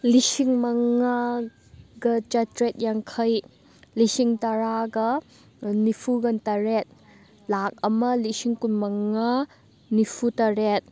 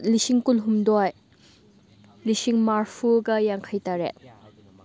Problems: background conversations at intervals